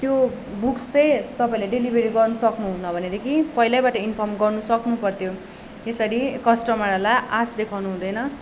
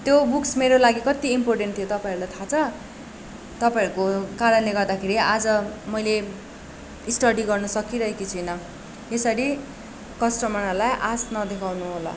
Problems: background sounds at intervals